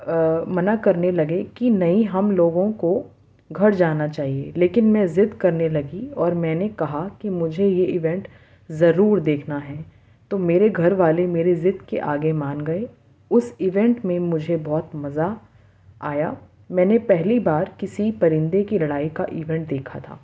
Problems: constant background noise